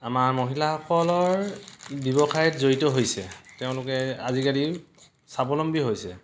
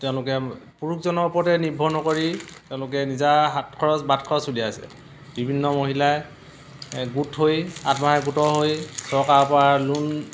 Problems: constant background noise, background conversations at intervals